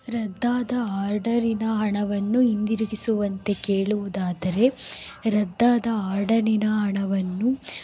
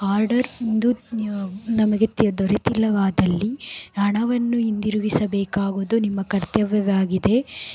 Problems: background sounds at intervals